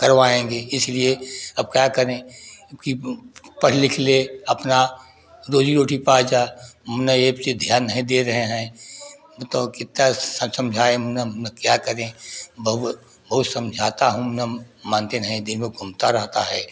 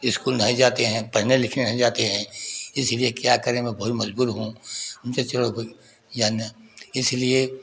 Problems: background sounds at intervals